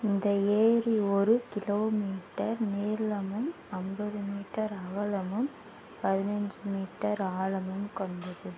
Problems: low volume